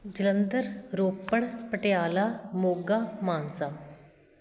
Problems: constant background noise